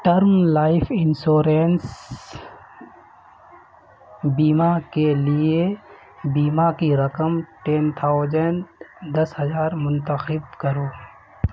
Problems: constant background noise